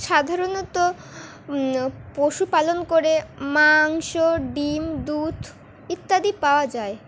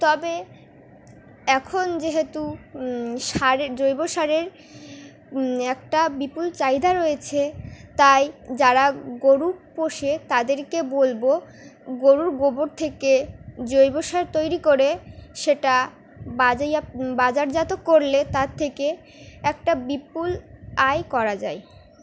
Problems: background sounds at intervals